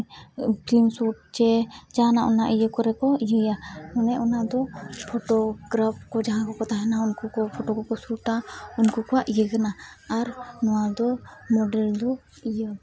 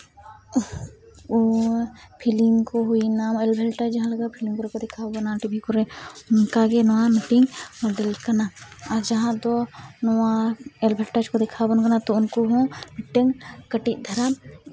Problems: background sounds at intervals